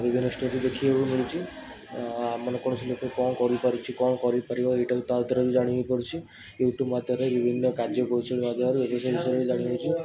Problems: constant background noise